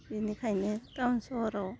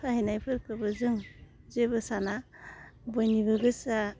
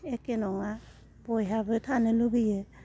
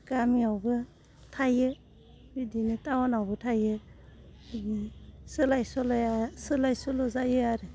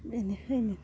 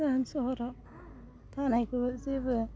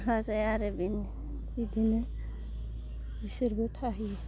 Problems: constant background noise